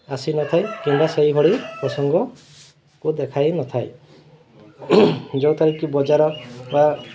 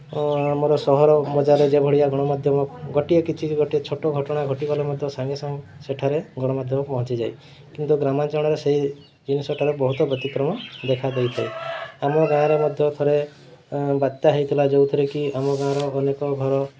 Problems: none marked